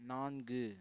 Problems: low volume